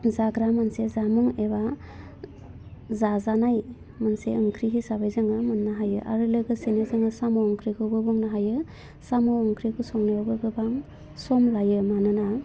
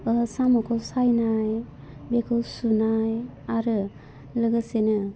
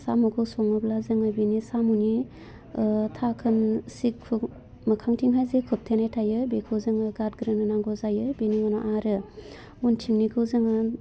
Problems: low volume